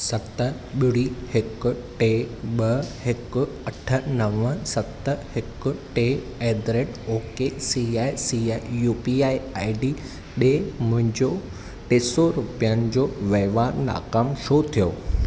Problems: none marked